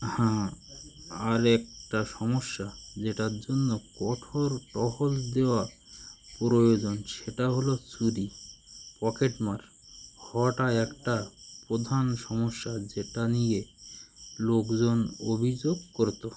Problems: continuous background conversations